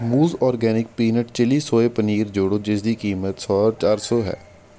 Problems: constant background noise